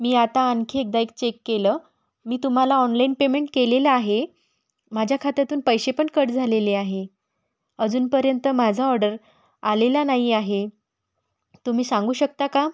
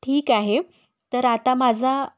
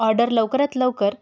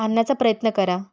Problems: background sounds at intervals